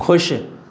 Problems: constant background noise, echo